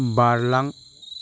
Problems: constant background noise